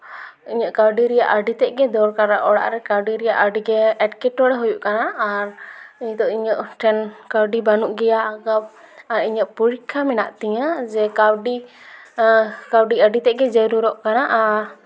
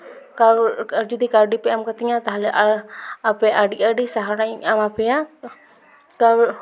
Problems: echo